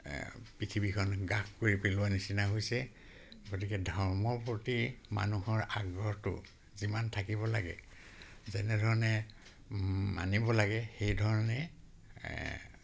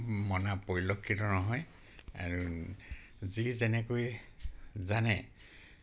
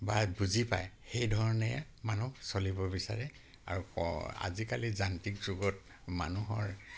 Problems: none marked